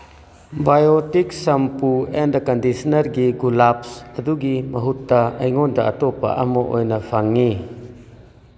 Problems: none marked